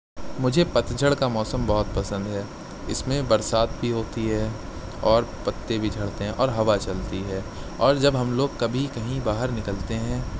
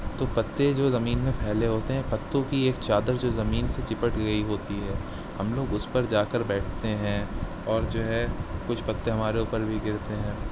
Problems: none marked